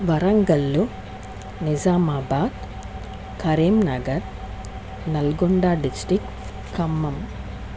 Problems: constant background noise